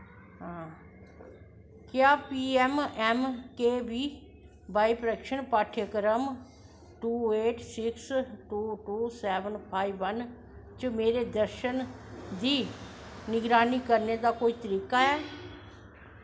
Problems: constant background noise